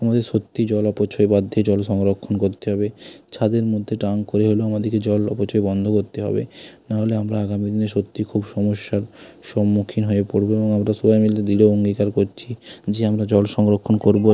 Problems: constant background noise